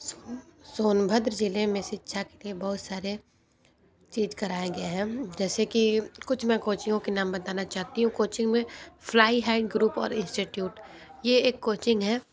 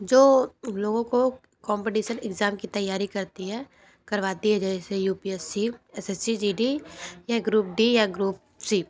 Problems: background sounds at intervals, background conversations at intervals